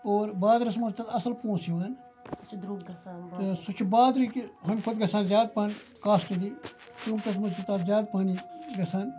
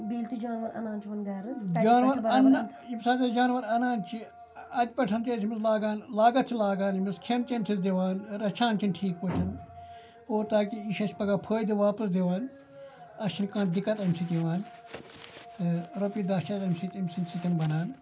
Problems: background sounds at intervals, background conversations at intervals